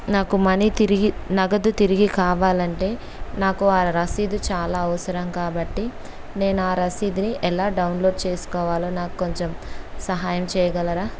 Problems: constant background noise